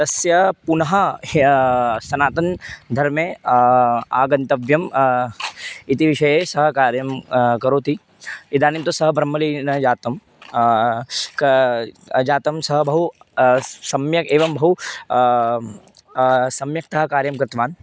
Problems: none marked